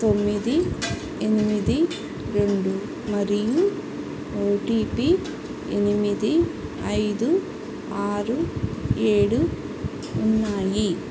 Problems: constant background noise